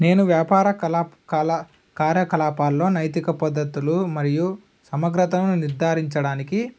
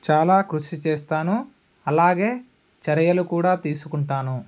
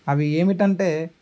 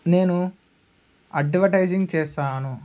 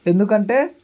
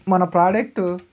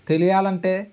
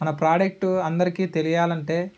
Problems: none marked